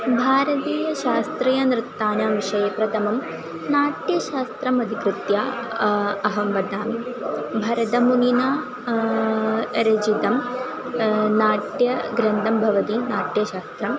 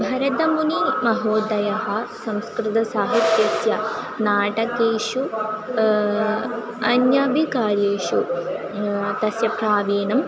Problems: constant background noise, continuous background conversations